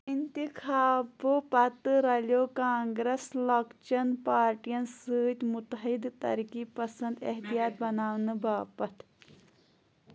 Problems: none marked